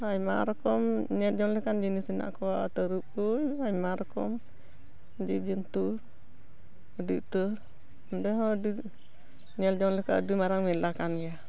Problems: background sounds at intervals, continuous background conversations